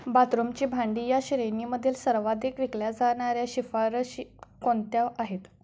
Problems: none marked